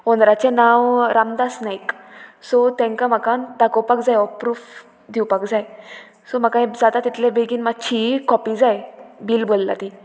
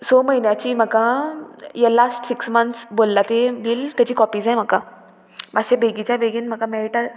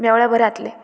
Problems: constant background noise